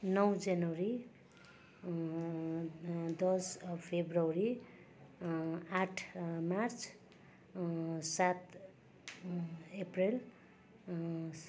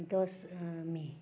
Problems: constant background noise